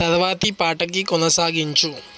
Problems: constant background noise